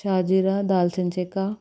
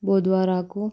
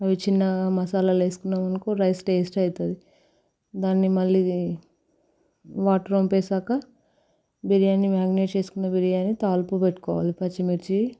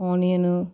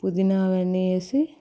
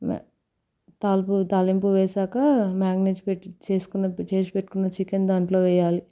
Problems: constant background noise